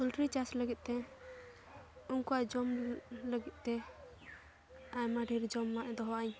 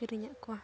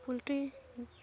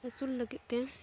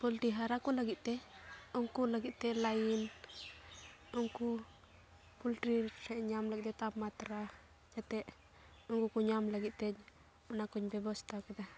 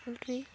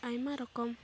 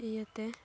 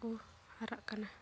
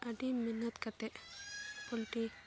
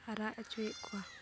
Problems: constant background noise